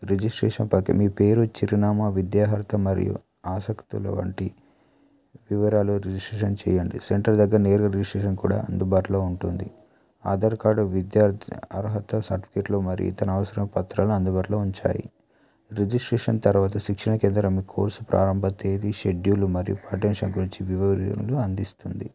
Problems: none marked